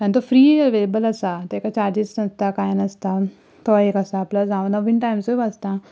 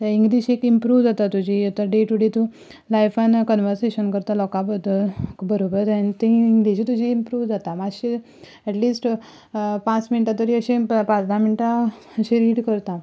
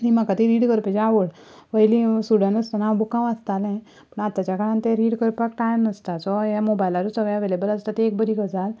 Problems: background sounds at intervals